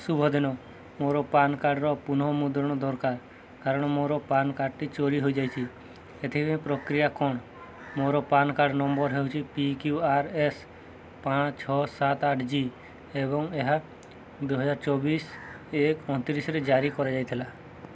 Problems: none marked